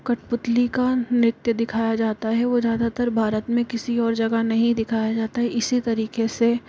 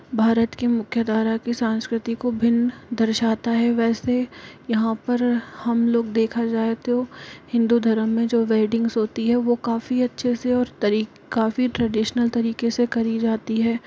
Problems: constant background noise